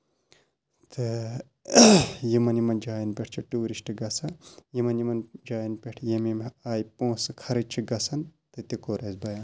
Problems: constant background noise, low volume